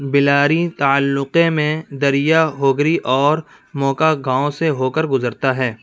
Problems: background sounds at intervals, background conversations at intervals